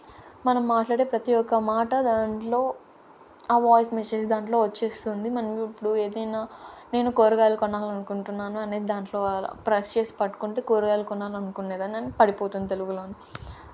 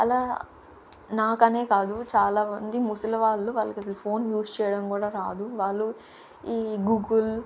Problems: constant background noise